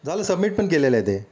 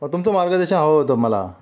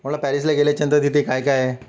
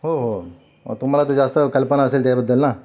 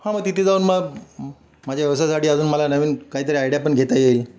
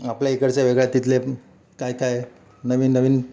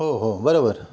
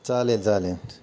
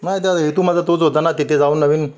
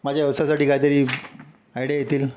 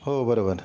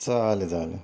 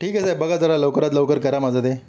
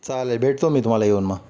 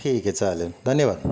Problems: constant background noise